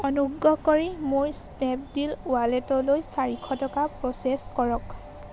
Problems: constant background noise